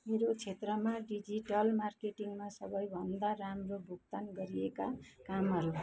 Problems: constant background noise, continuous background conversations